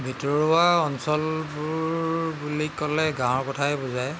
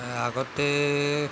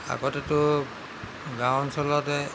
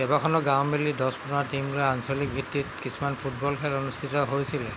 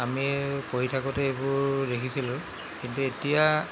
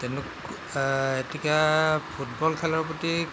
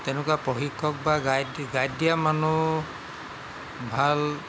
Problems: constant background noise